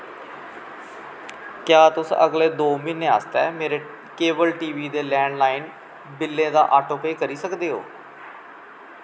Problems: background sounds at intervals